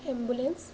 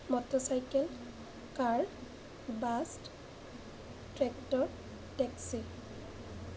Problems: none marked